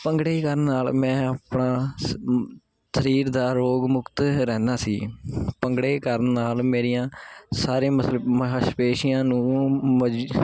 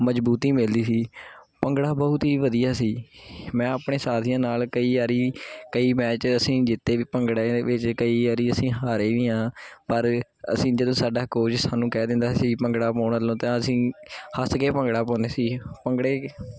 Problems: constant background noise